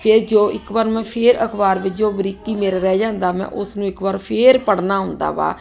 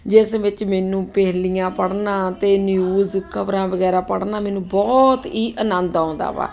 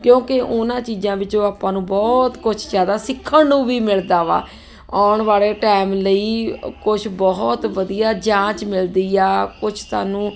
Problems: constant background noise